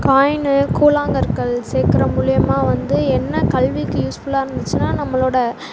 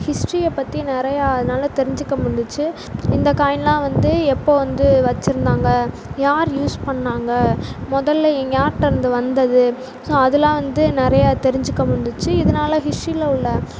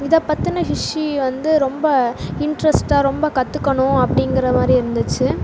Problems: constant background noise